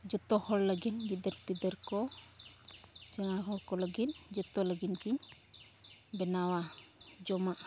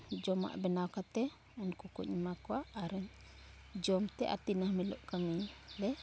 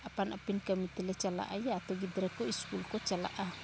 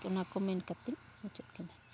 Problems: none marked